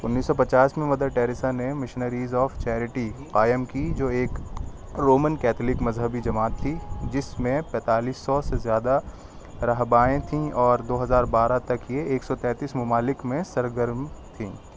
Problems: constant background noise